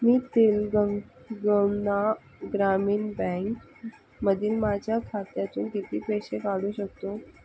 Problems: constant background noise